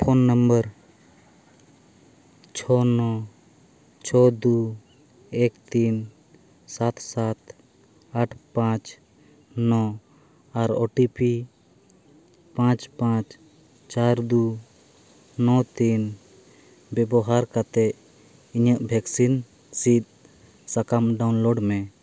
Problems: none marked